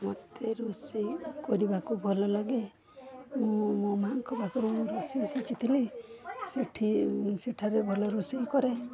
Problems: none marked